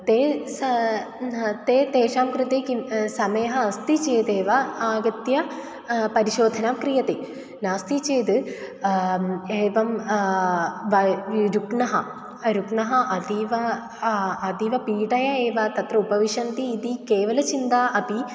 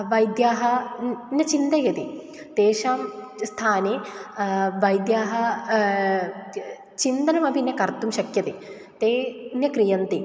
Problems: none marked